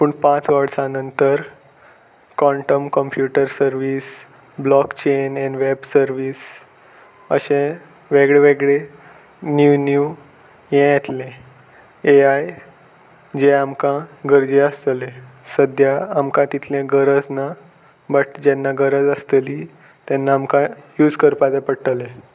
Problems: constant background noise